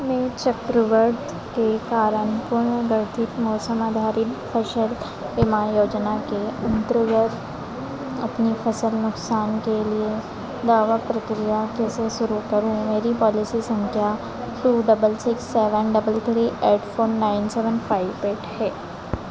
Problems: none marked